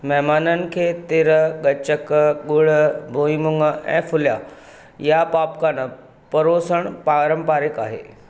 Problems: none marked